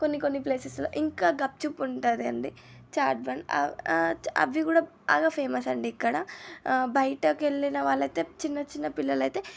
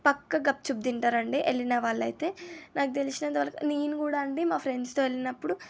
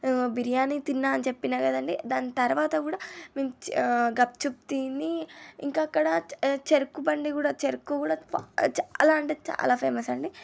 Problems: none marked